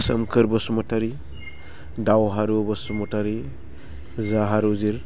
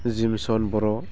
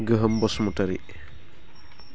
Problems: low volume